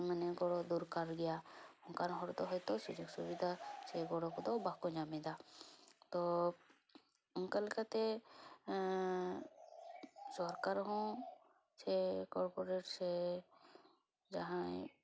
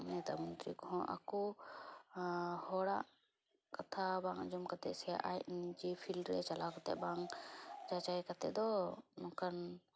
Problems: background sounds at intervals